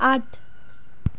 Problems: background sounds at intervals